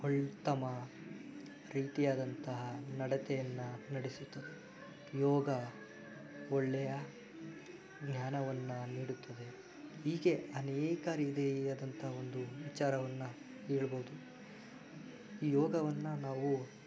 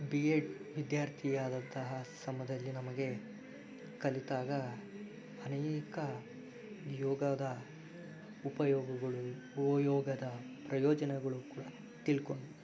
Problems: background sounds at intervals